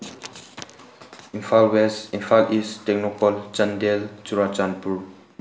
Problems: none marked